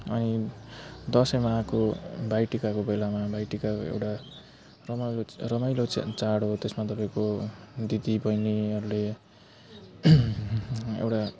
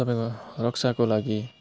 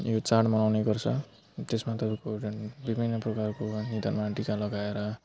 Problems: constant background noise